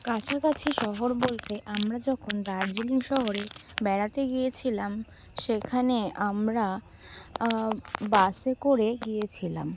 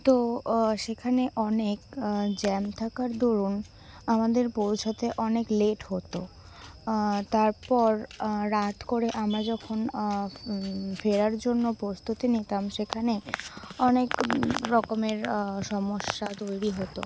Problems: background sounds at intervals